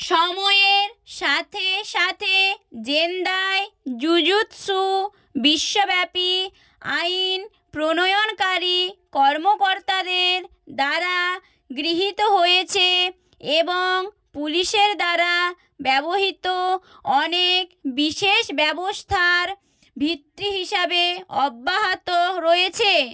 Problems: none marked